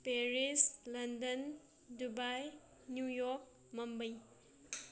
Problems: none marked